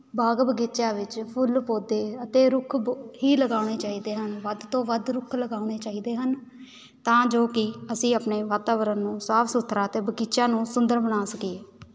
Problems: none marked